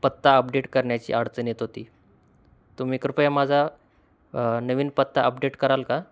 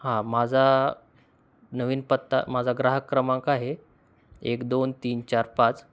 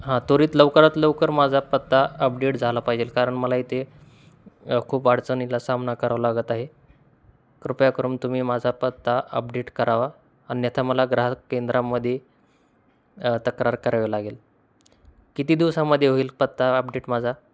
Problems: constant background noise